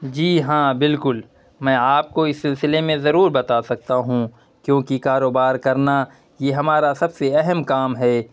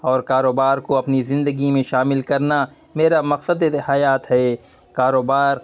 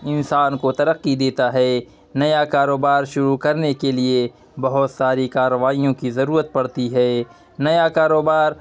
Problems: none marked